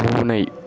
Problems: constant background noise